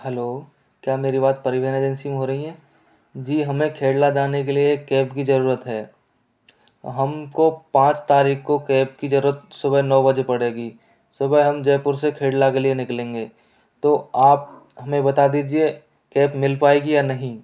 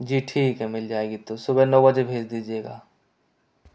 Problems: none marked